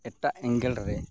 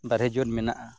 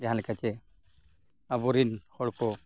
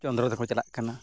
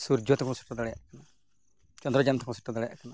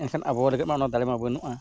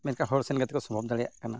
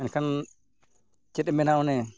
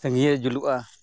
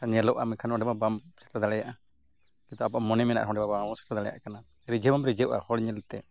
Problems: none marked